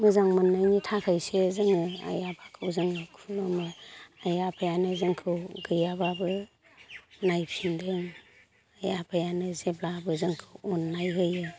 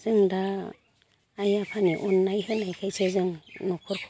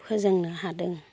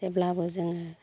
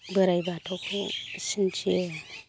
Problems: low volume